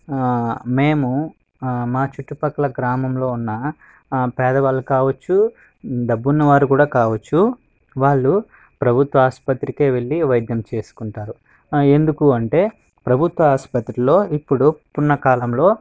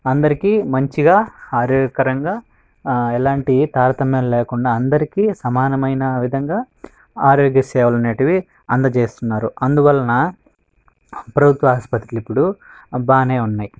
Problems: background sounds at intervals